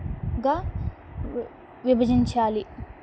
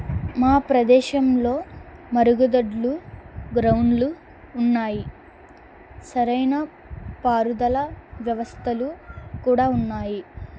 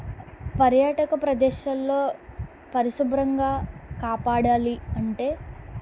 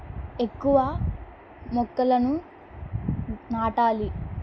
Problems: constant background noise